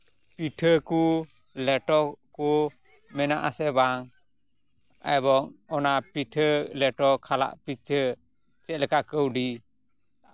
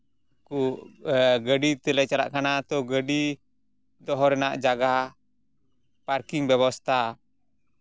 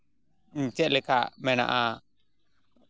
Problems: none marked